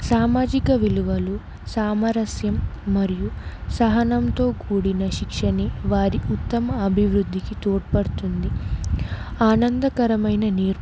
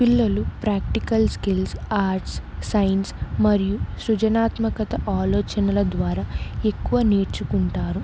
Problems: none marked